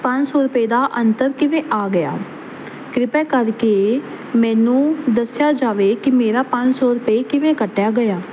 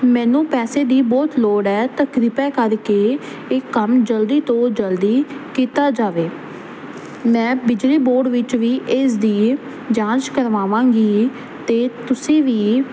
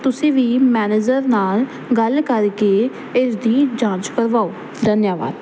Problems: constant background noise